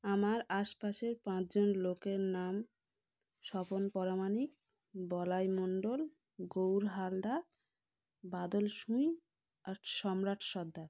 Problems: none marked